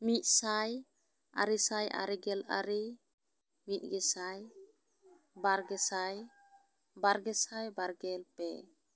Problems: none marked